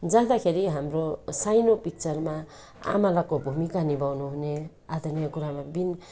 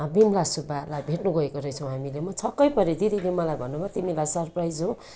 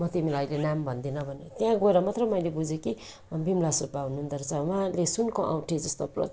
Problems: constant background noise